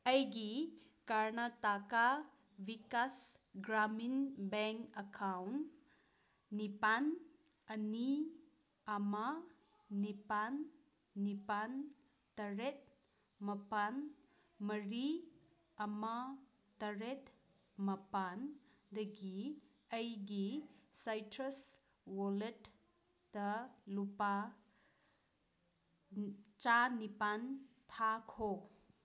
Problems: none marked